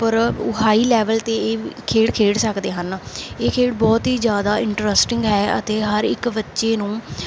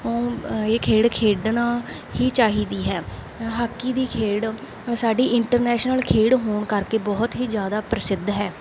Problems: background sounds at intervals